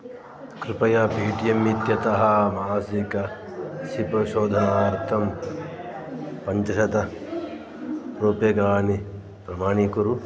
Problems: background sounds at intervals